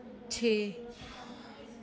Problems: none marked